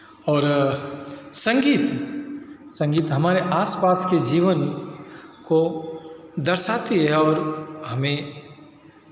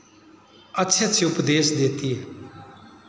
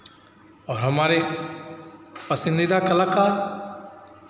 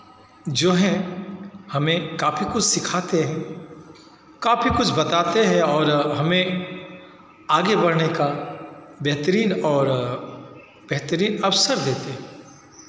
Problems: constant background noise, continuous background conversations